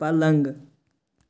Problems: constant background noise